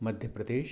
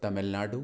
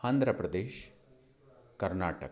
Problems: none marked